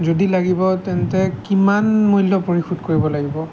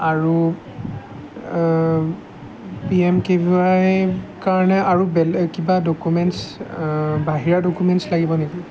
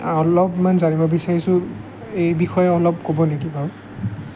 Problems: background sounds at intervals